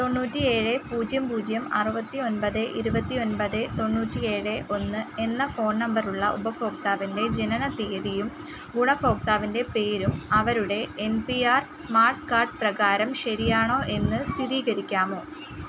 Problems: constant background noise